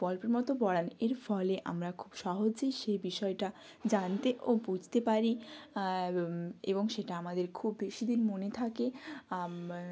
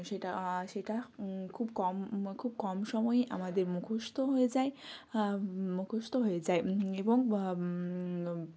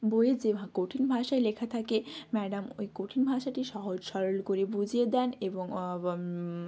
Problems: background sounds at intervals